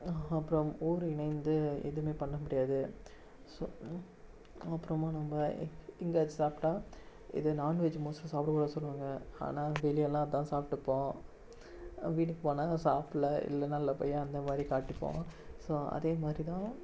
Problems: none marked